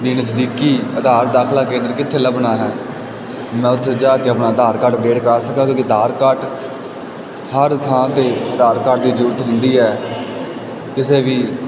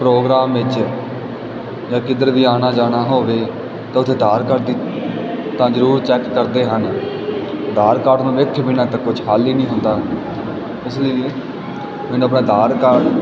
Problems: constant background noise, background conversations at intervals